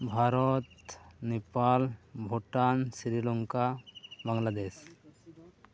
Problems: background sounds at intervals, background conversations at intervals